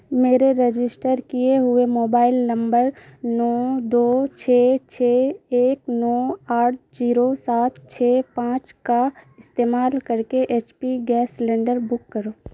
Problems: constant background noise